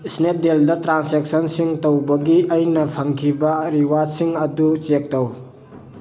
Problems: constant background noise